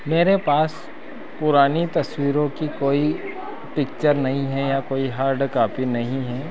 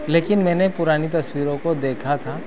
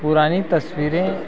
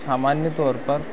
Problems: continuous background conversations